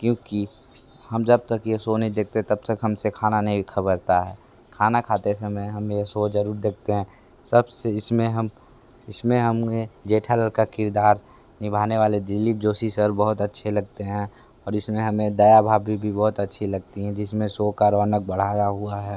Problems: constant background noise